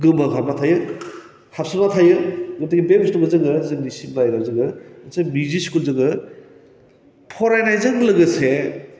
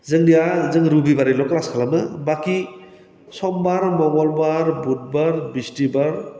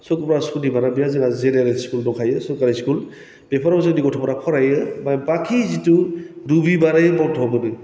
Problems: constant background noise